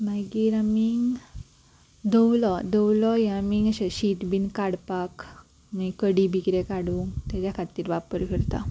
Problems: background sounds at intervals